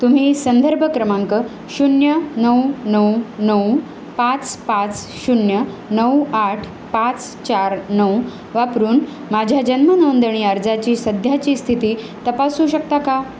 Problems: constant background noise